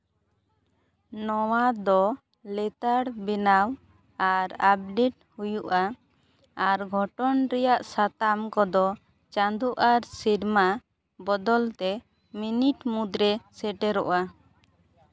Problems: none marked